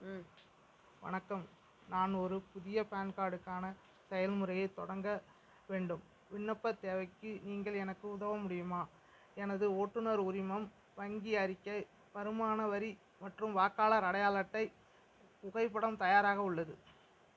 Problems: low volume